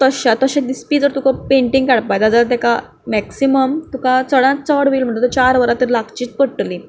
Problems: background sounds at intervals